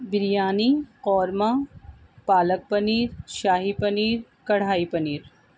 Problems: constant background noise